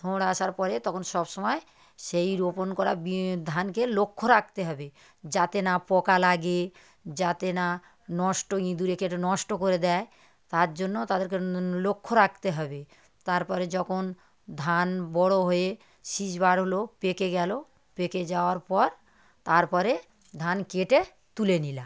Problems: none marked